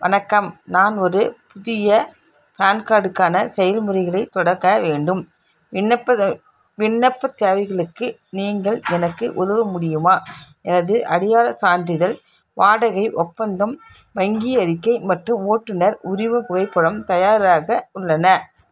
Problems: none marked